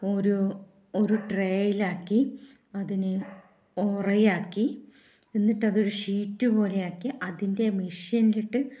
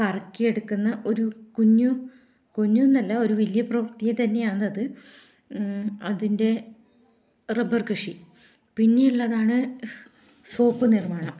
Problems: low volume